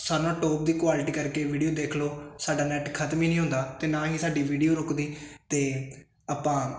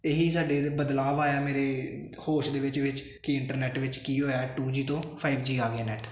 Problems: constant background noise